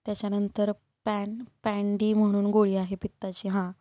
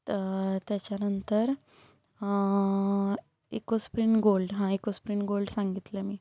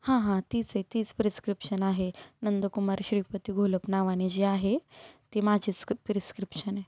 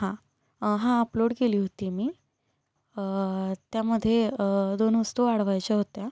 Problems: constant background noise